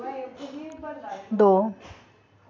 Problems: background sounds at intervals